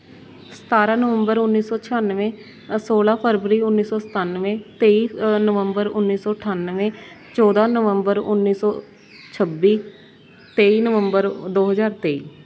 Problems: constant background noise